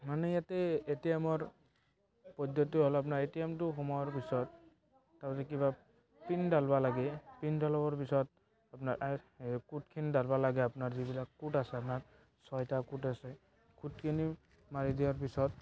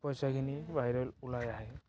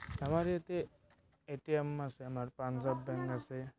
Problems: background sounds at intervals, background conversations at intervals